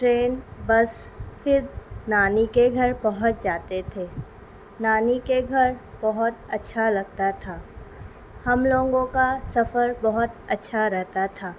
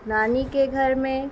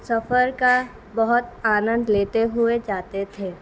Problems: constant background noise